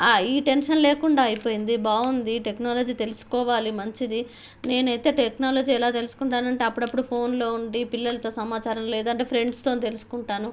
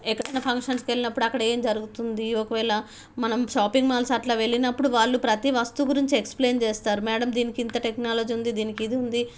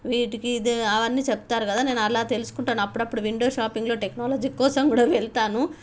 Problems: background sounds at intervals